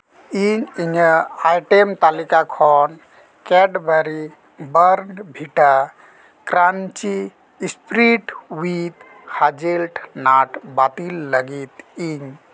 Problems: constant background noise, background conversations at intervals